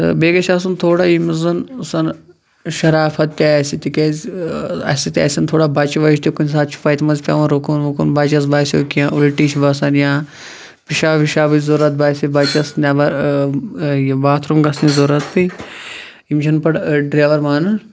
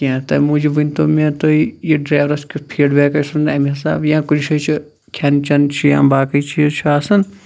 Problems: background conversations at intervals